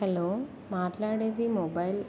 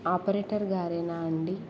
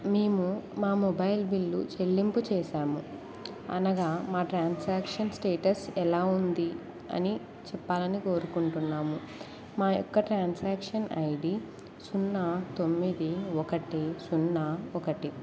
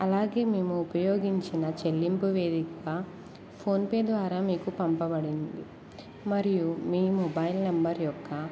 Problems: constant background noise